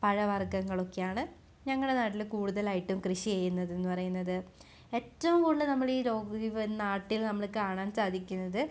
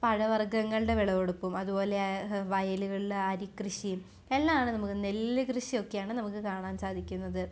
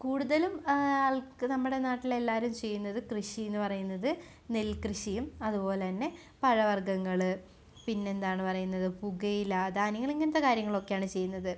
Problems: none marked